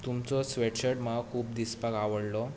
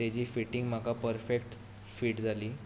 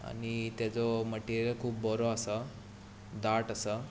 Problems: none marked